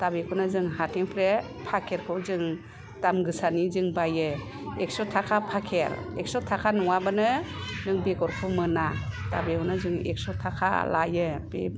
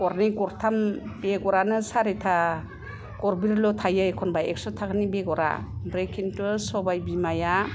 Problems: low volume